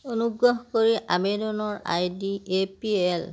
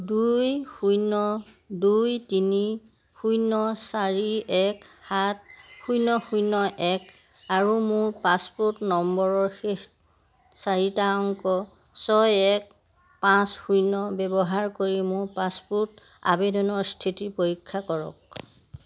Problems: none marked